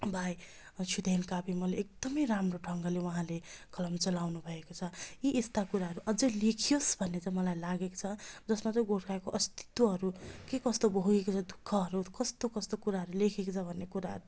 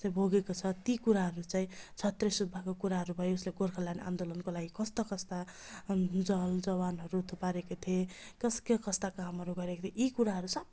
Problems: constant background noise